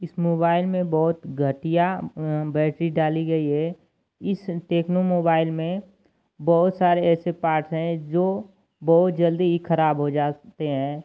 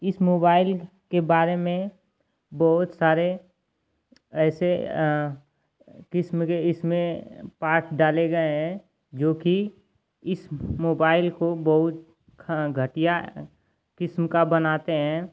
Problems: constant background noise